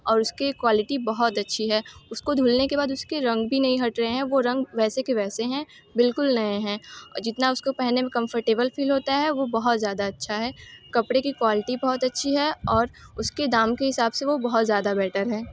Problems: constant background noise